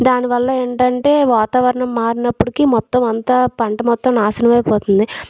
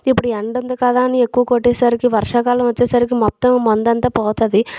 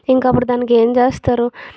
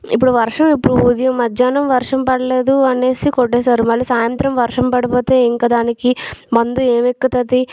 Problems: background sounds at intervals